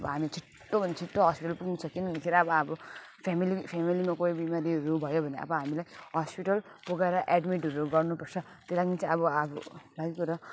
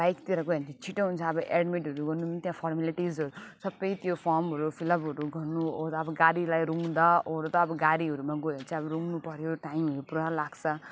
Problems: constant background noise, continuous background conversations, low volume